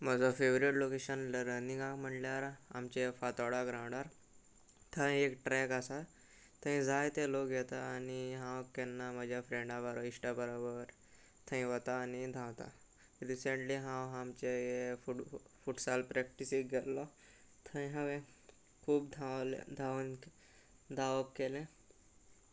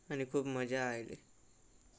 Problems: background sounds at intervals